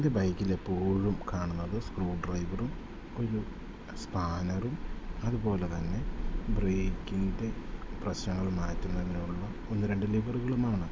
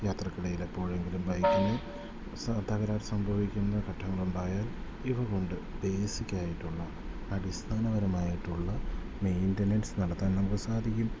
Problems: background sounds at intervals